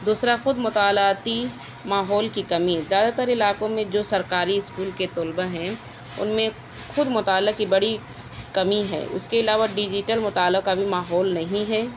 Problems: constant background noise